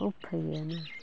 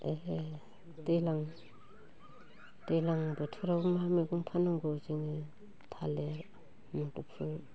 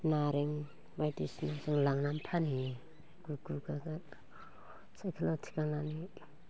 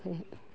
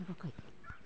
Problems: constant background noise